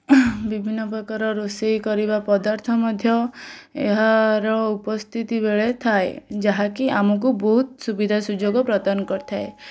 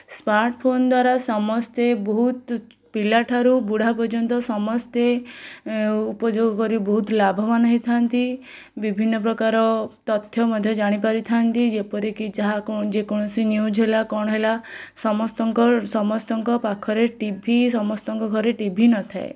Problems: none marked